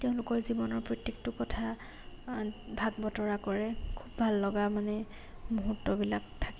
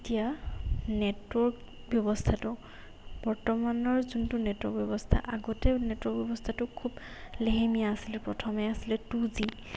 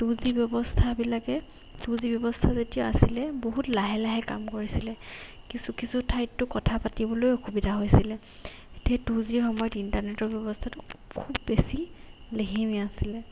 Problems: background sounds at intervals